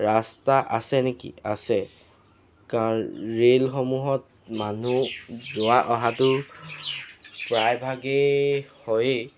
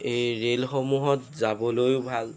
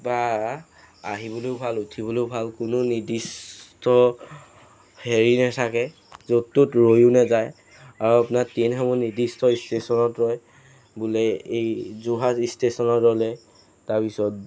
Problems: none marked